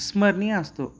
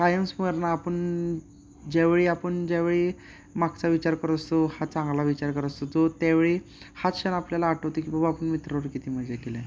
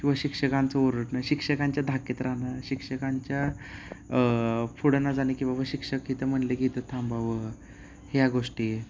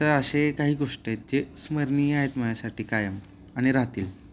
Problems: none marked